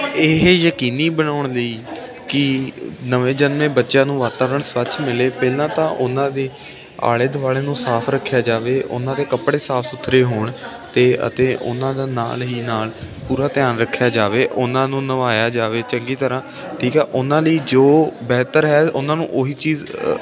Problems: constant background noise